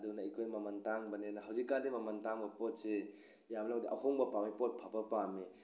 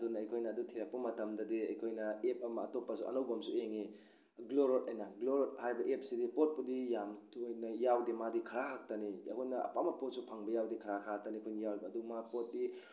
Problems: none marked